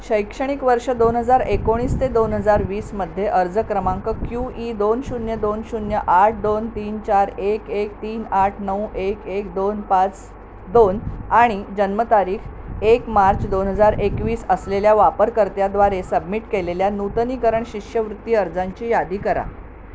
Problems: none marked